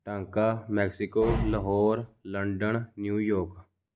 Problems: background sounds at intervals